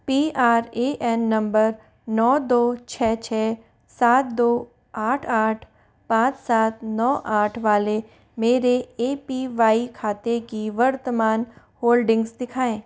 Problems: none marked